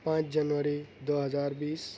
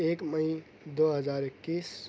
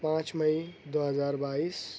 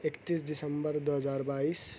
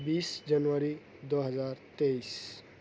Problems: none marked